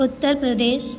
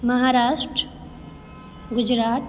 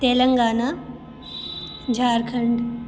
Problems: none marked